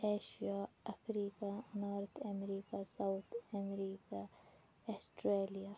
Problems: background sounds at intervals, low volume